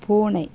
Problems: none marked